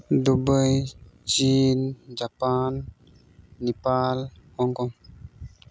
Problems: background sounds at intervals